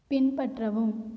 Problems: low volume